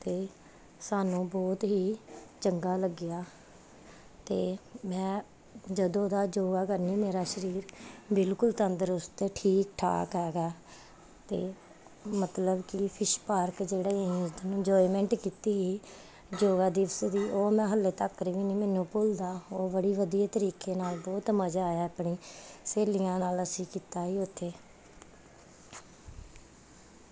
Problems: background sounds at intervals